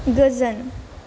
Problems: low volume